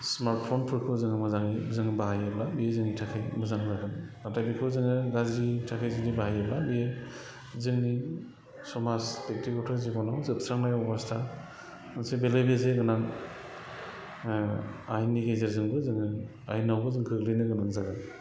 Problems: none marked